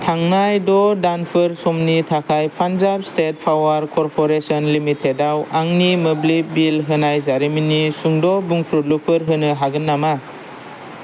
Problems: none marked